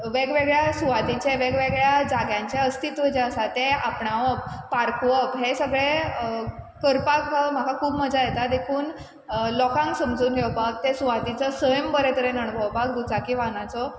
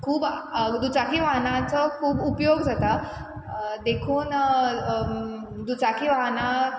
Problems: constant background noise